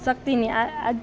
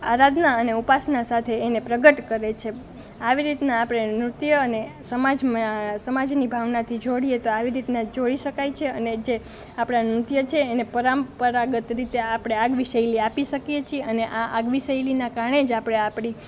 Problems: none marked